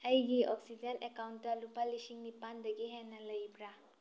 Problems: low volume